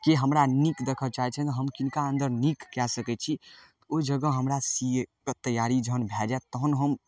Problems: none marked